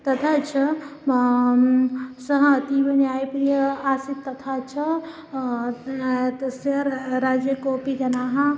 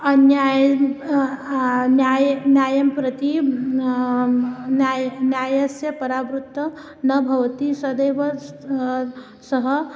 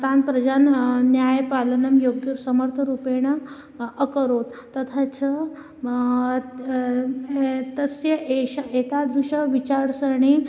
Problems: none marked